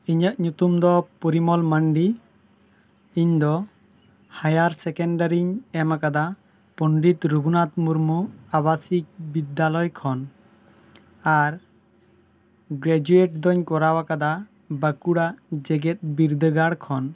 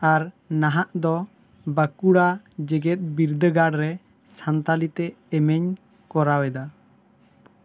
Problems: none marked